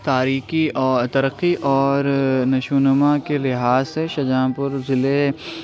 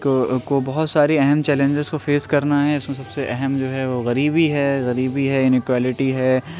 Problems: constant background noise, background conversations at intervals